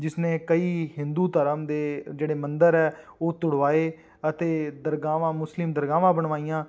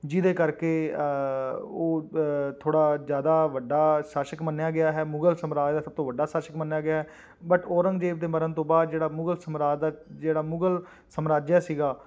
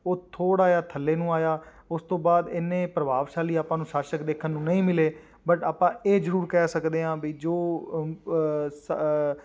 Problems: background sounds at intervals